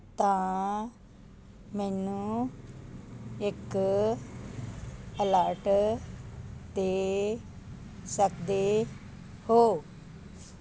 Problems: constant background noise